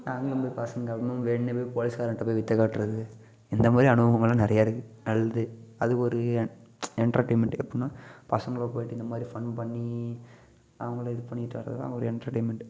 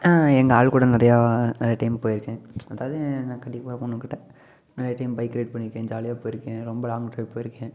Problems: continuous background conversations